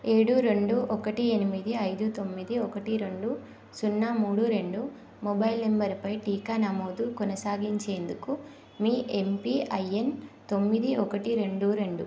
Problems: none marked